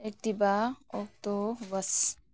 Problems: low volume